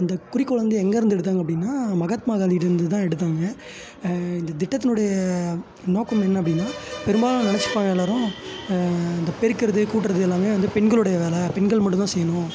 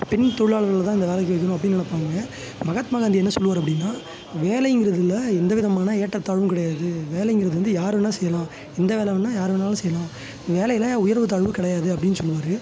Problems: background sounds at intervals